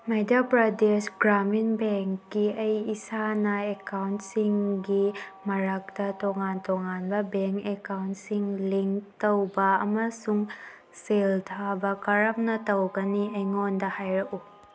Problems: background sounds at intervals